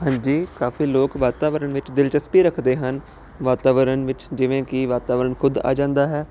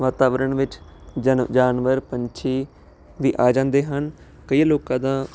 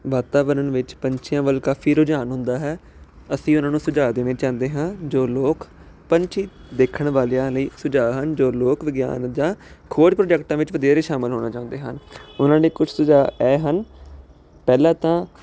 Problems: constant background noise